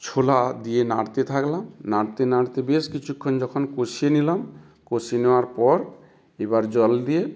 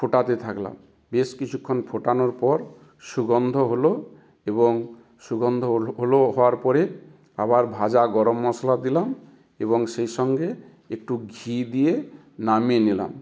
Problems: constant background noise